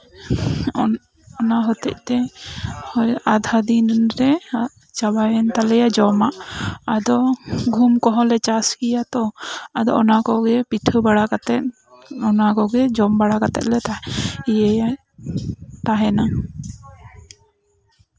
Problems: none marked